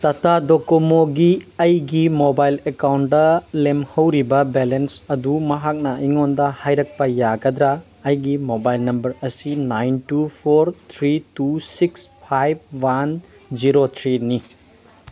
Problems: constant background noise